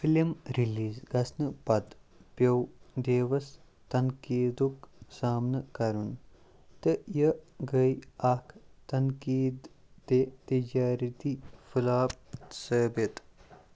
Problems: low volume